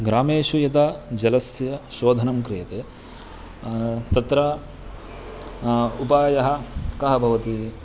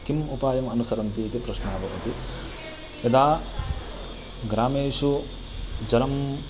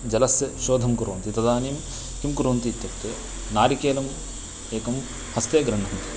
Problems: constant background noise